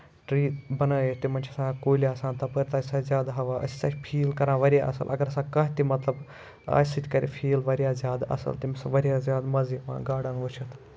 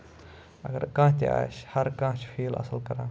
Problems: none marked